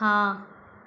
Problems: constant background noise, echo